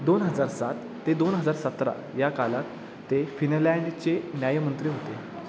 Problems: none marked